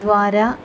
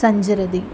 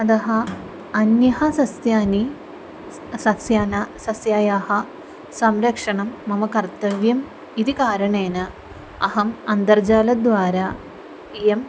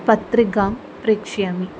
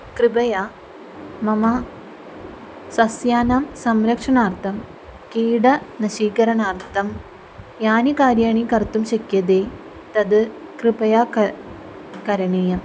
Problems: none marked